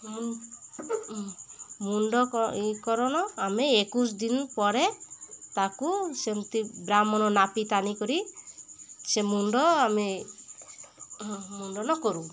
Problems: constant background noise, continuous background conversations